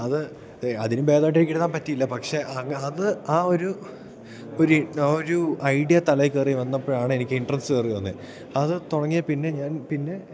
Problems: none marked